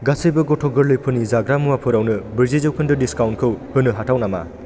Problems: constant background noise